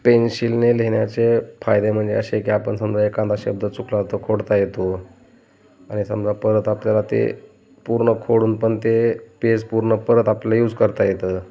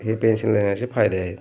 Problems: constant background noise, background conversations at intervals